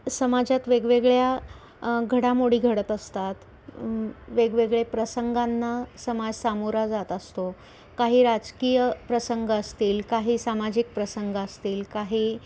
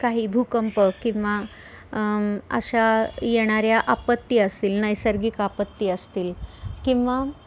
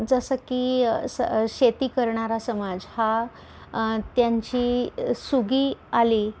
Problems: none marked